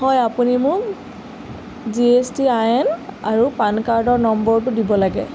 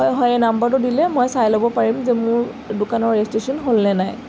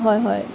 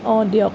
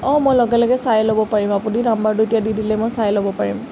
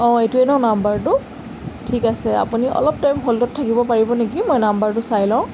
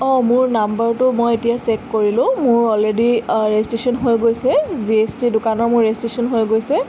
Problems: constant background noise